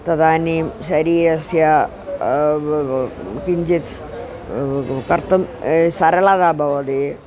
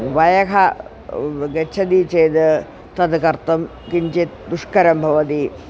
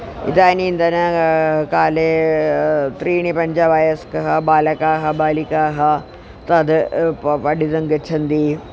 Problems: constant background noise